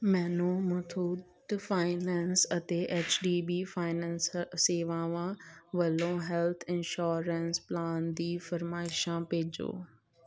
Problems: none marked